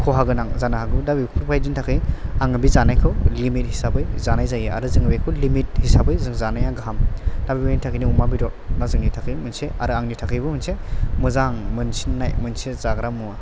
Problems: none marked